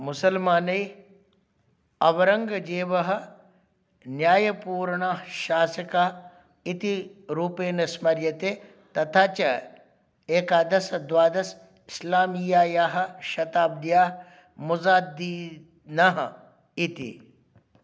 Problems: none marked